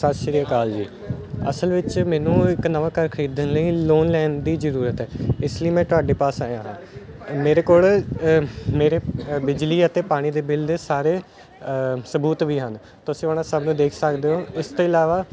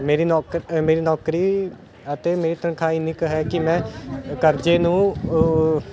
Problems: background sounds at intervals